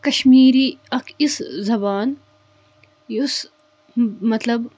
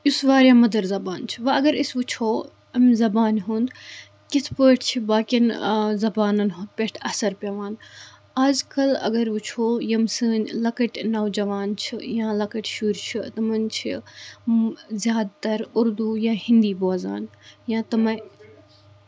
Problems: background sounds at intervals